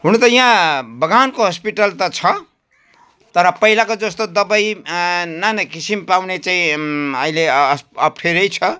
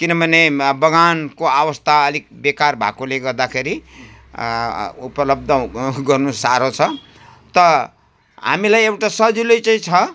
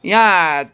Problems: background sounds at intervals